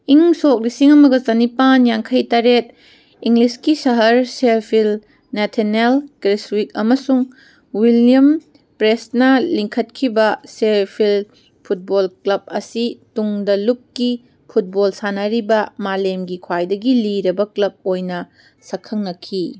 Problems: background sounds at intervals